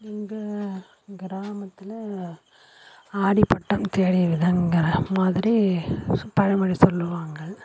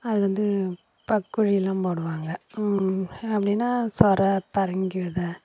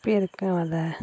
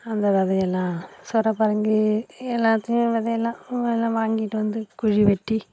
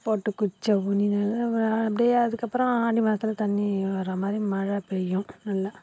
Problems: constant background noise